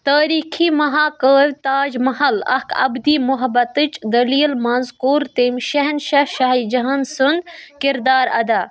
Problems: continuous background conversations